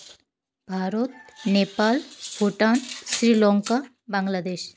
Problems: background sounds at intervals